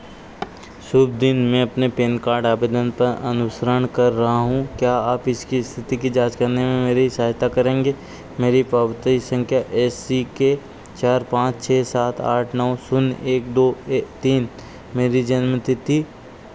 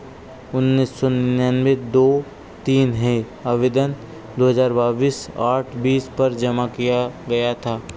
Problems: constant background noise